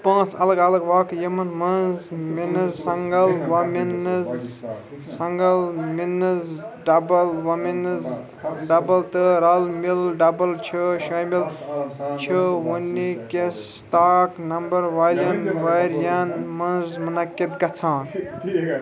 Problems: continuous background conversations